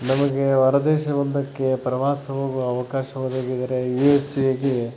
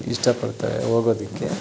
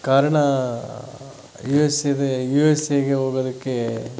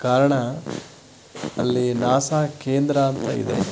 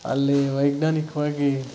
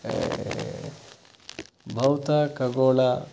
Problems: none marked